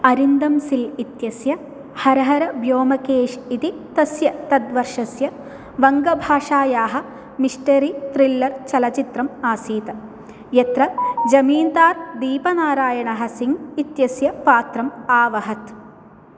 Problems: background sounds at intervals